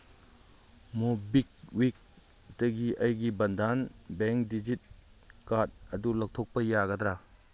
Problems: background sounds at intervals